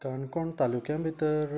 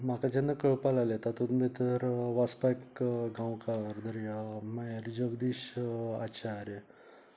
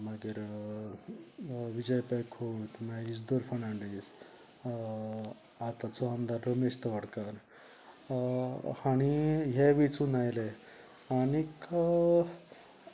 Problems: background conversations at intervals